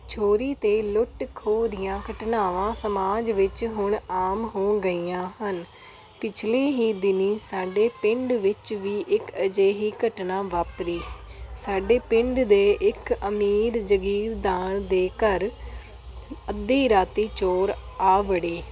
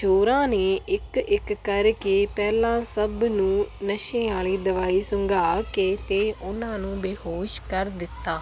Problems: constant background noise